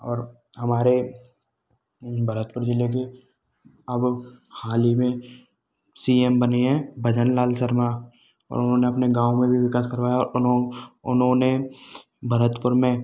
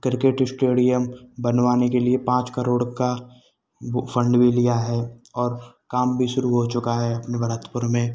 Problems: none marked